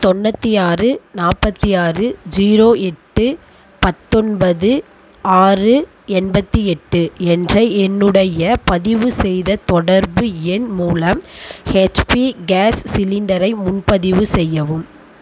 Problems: background sounds at intervals